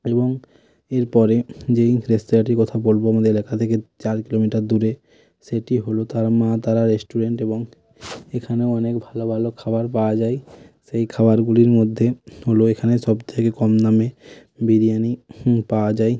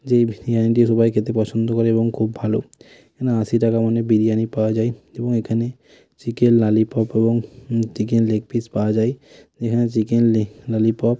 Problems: constant background noise